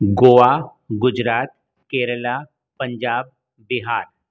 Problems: none marked